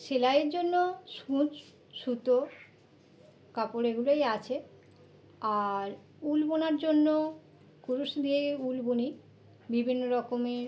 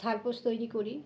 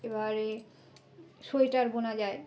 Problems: constant background noise